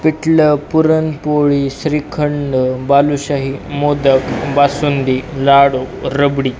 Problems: none marked